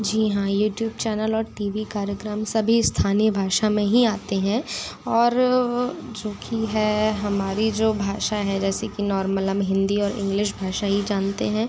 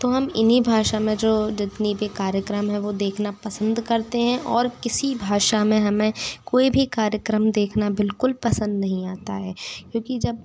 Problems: background sounds at intervals, background conversations at intervals